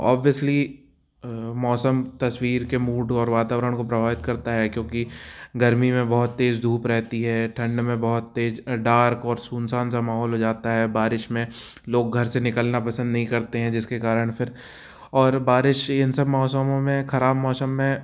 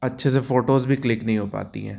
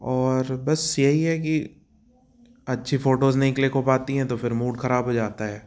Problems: none marked